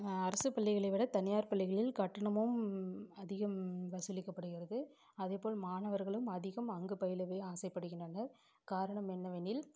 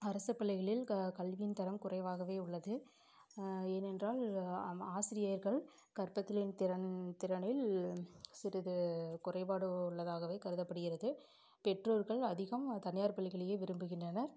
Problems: background sounds at intervals